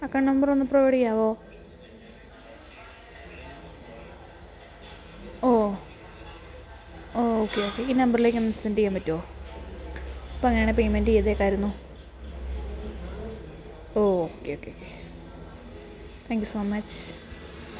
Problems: background sounds at intervals, background conversations at intervals